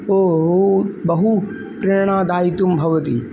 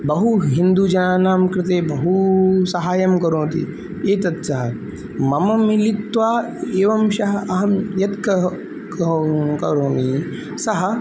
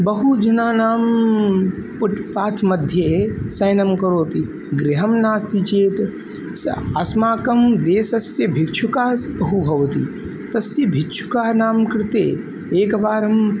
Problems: constant background noise